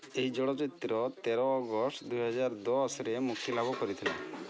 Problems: constant background noise, background conversations at intervals